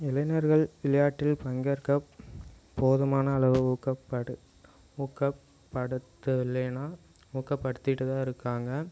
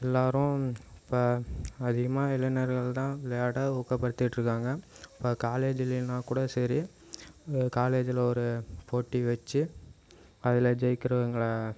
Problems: constant background noise